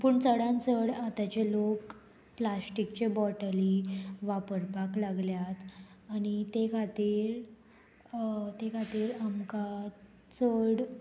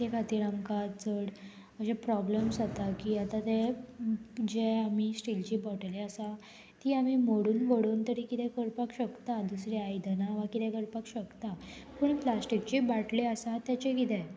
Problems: constant background noise